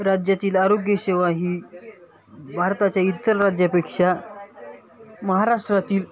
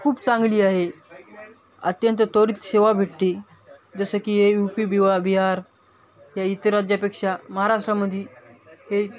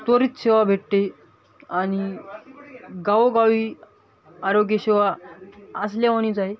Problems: constant background noise, continuous background conversations